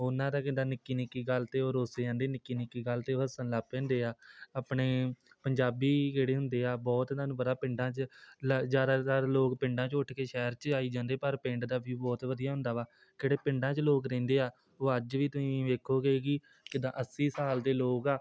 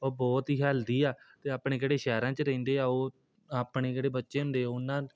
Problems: none marked